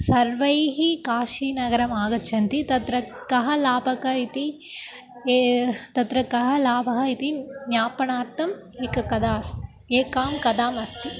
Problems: constant background noise, continuous background conversations